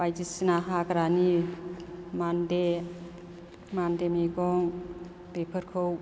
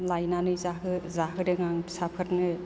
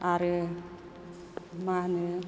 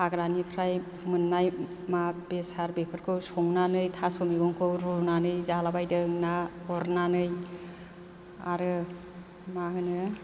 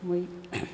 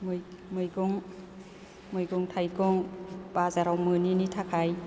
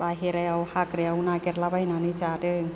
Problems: none marked